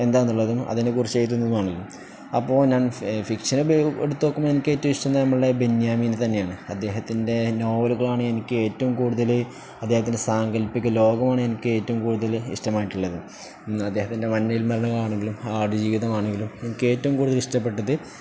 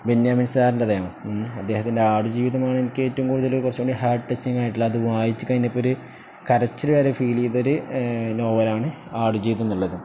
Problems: none marked